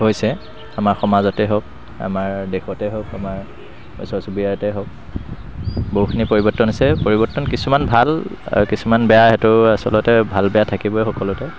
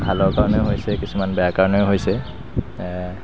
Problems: constant background noise